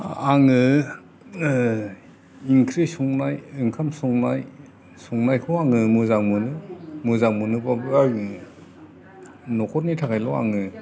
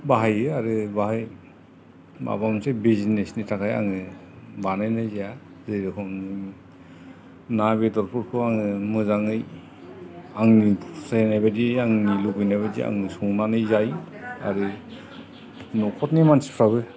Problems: constant background noise, background conversations at intervals